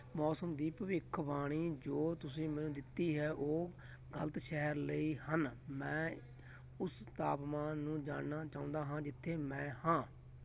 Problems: background sounds at intervals, continuous background conversations